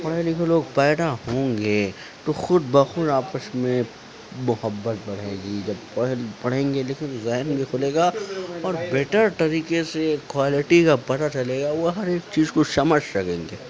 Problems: constant background noise, low volume